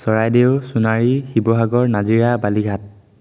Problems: constant background noise